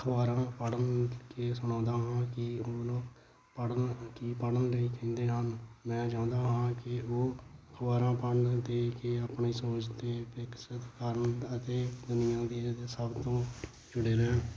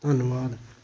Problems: constant background noise